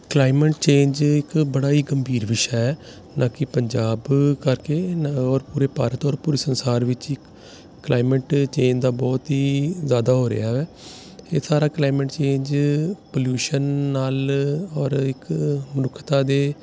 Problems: none marked